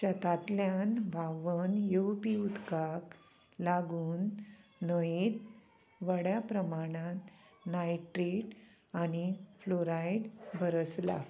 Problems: constant background noise